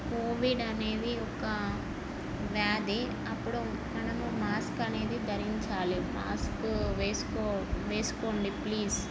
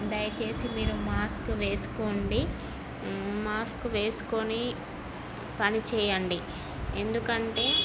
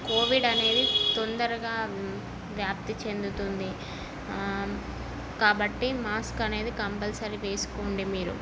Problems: constant background noise